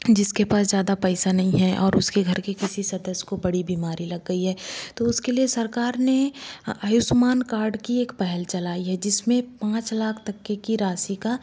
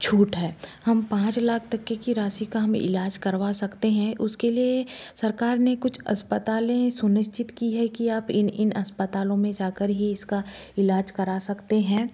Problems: constant background noise